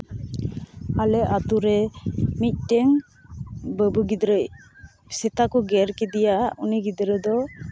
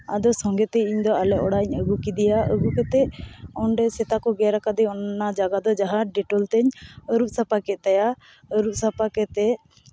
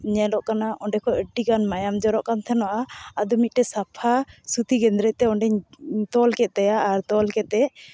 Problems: none marked